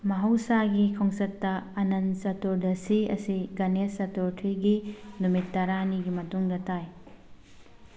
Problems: background sounds at intervals, background conversations at intervals